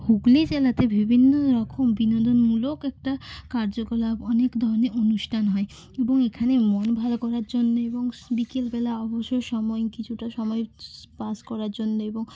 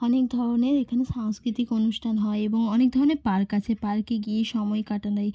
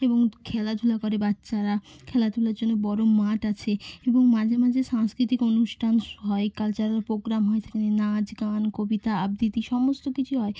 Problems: none marked